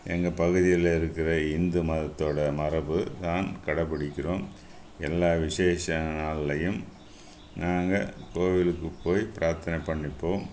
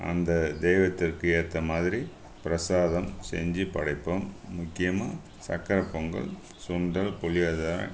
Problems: constant background noise